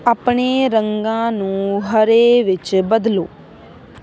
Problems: none marked